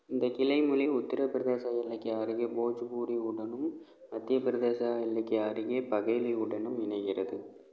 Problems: none marked